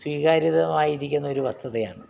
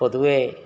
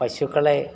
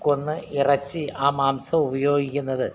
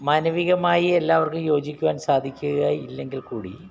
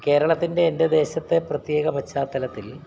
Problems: background sounds at intervals